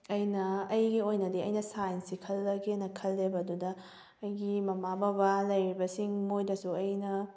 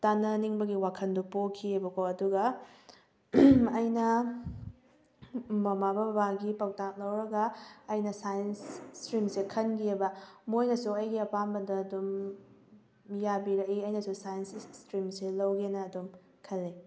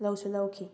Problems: background sounds at intervals